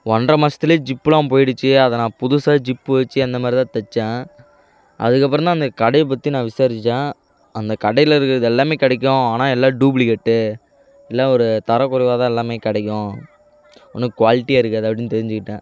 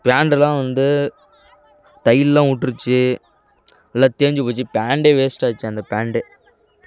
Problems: constant background noise